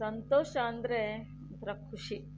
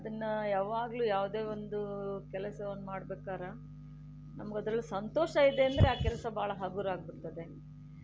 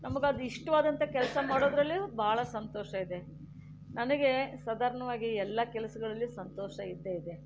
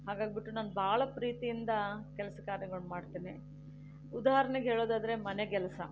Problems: none marked